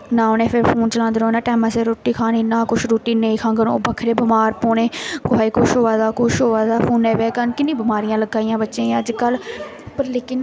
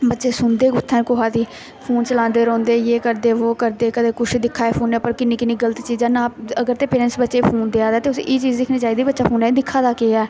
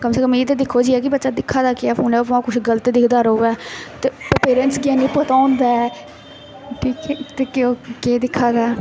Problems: none marked